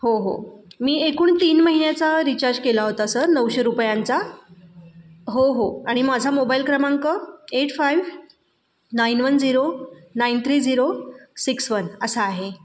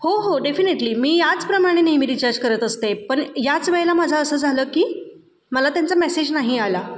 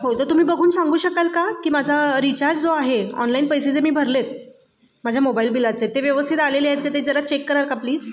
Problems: background sounds at intervals, background conversations at intervals